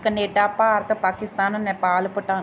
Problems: none marked